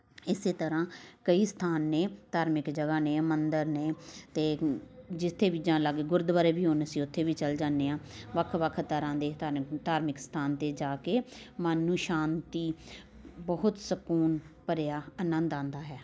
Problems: background sounds at intervals, continuous background conversations